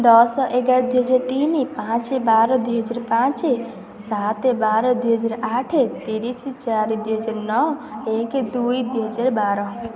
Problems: constant background noise